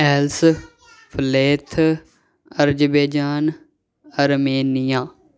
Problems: background sounds at intervals